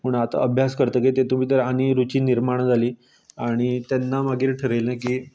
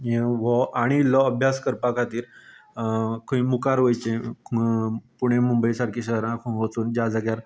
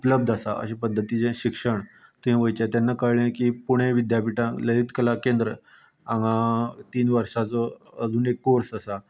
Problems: none marked